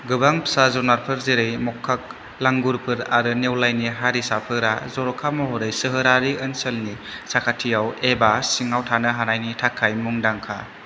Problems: constant background noise